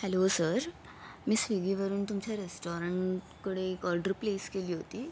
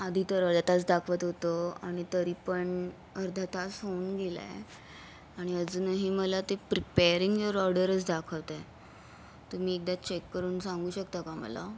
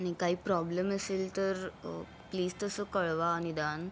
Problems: background sounds at intervals